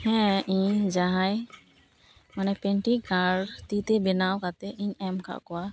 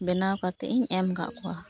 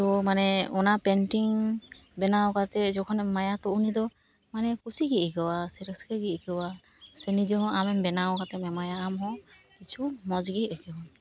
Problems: none marked